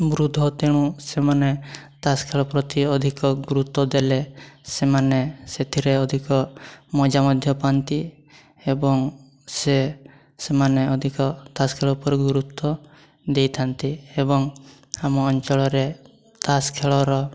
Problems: constant background noise